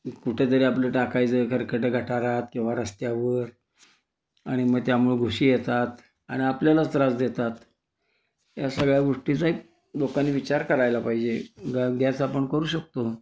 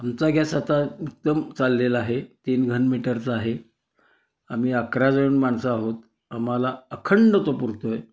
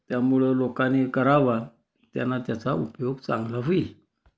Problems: constant background noise, continuous background conversations